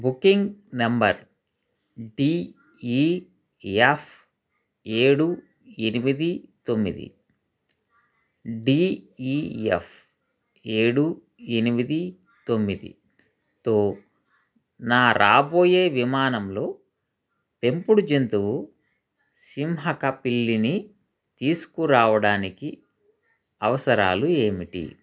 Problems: constant background noise